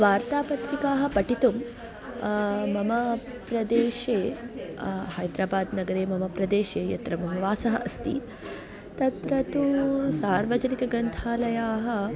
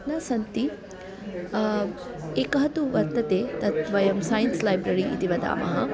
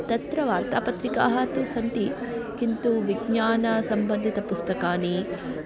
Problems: continuous background conversations